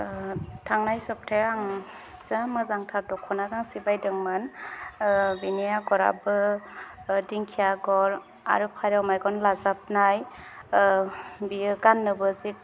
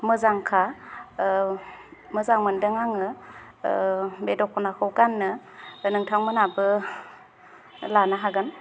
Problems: none marked